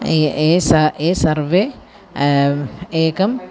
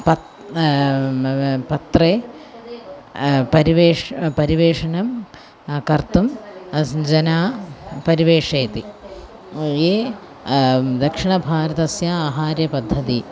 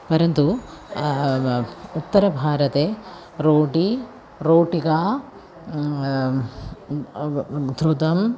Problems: none marked